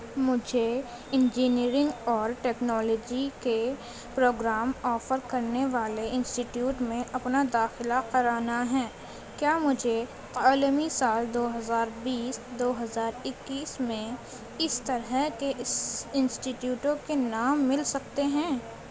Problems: constant background noise, continuous background conversations, low volume